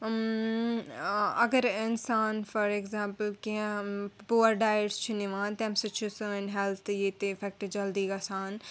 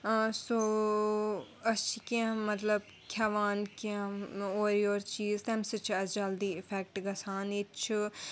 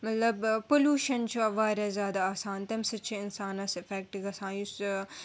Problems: background sounds at intervals